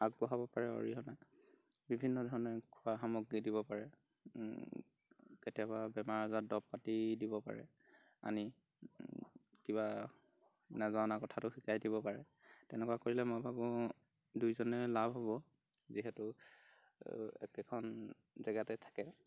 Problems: background sounds at intervals